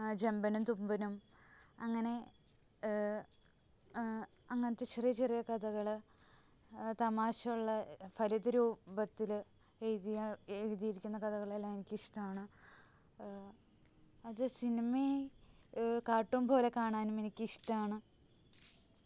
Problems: constant background noise, low volume